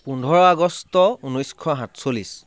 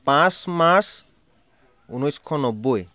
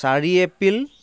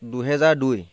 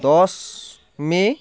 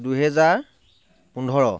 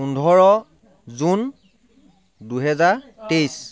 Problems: background sounds at intervals, background conversations at intervals